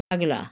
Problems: background sounds at intervals